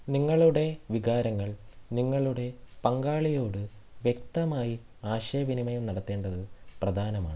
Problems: none marked